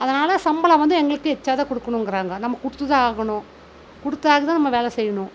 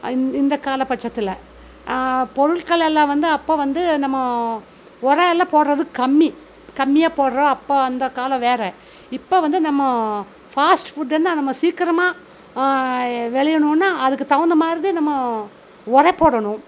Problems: none marked